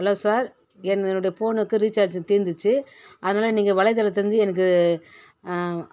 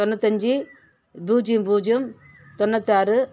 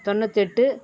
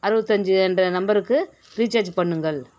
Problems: none marked